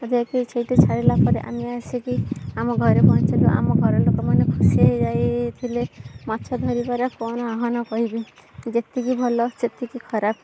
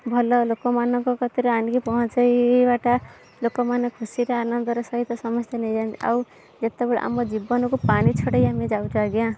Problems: background sounds at intervals